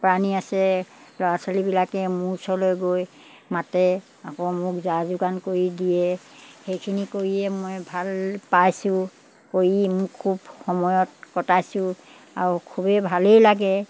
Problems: background sounds at intervals